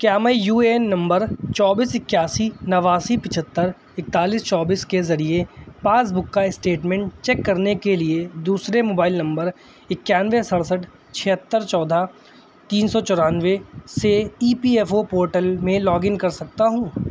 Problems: none marked